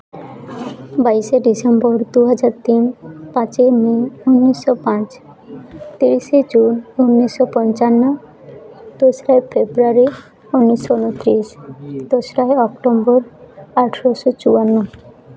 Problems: constant background noise, background conversations at intervals